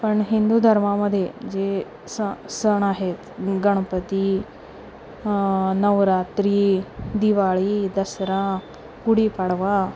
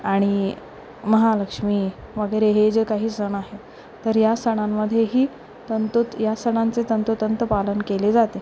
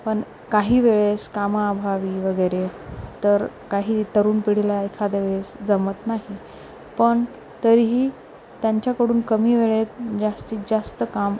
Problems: none marked